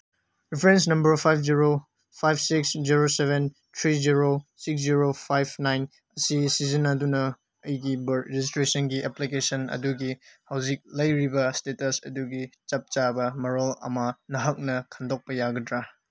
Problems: none marked